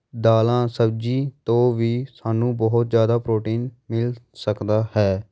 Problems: none marked